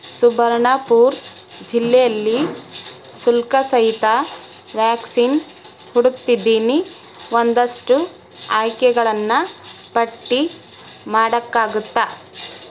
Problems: constant background noise